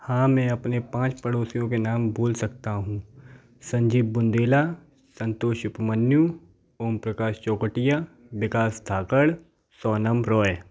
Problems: background sounds at intervals, background conversations at intervals